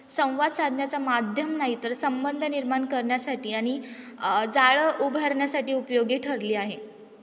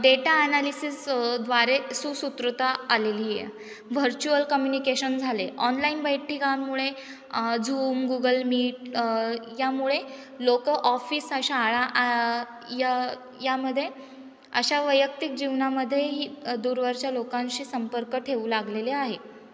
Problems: none marked